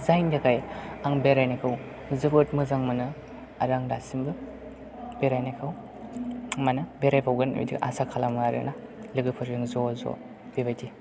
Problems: background sounds at intervals, background conversations at intervals